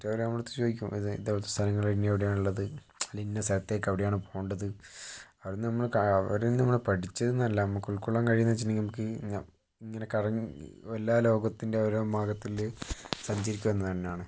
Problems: low volume